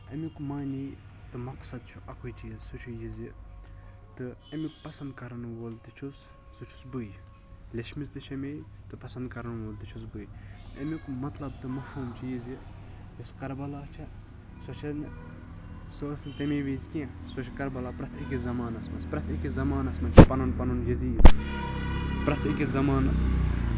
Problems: constant background noise